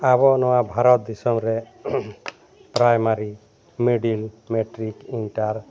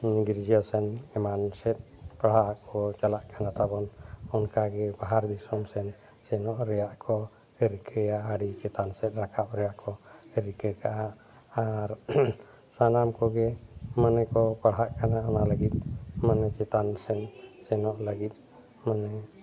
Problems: constant background noise